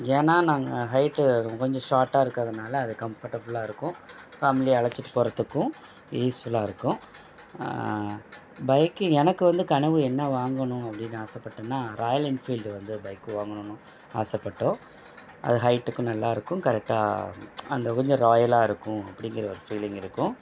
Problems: constant background noise